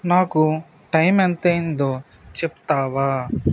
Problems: constant background noise